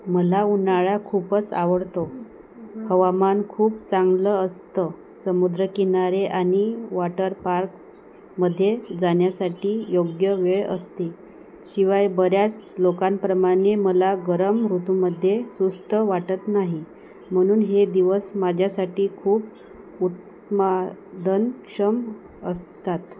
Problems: none marked